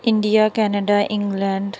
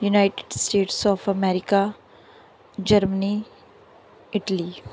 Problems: background sounds at intervals